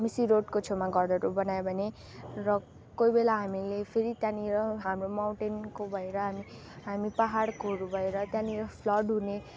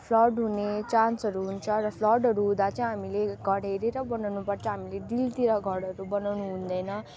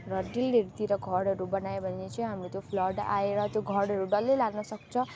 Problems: none marked